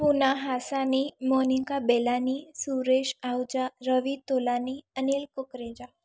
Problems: none marked